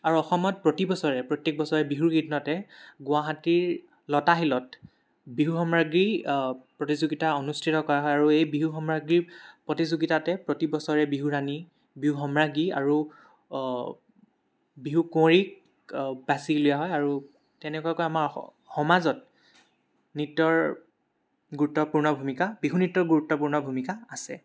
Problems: background sounds at intervals